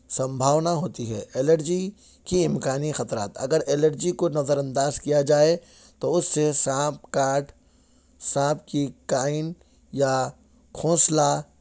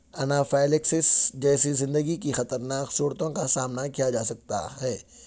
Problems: background sounds at intervals